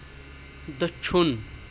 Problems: constant background noise